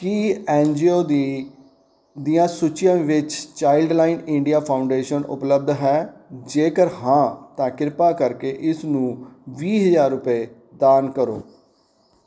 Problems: background sounds at intervals